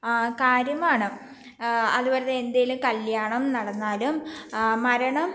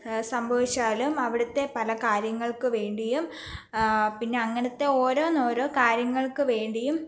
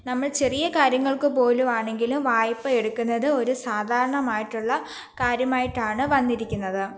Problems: background sounds at intervals